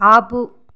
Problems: background sounds at intervals